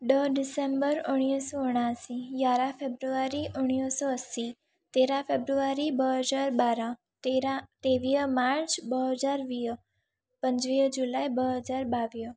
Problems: none marked